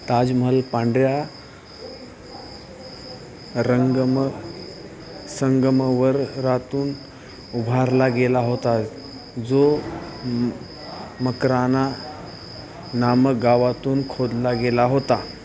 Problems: constant background noise